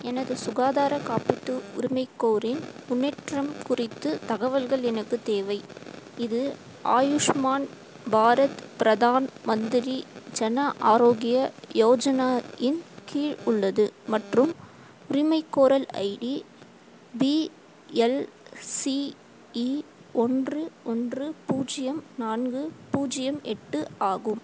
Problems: constant background noise